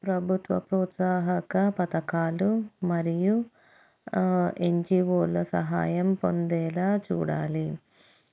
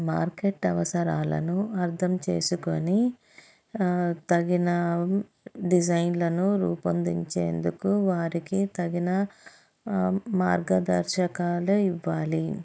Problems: none marked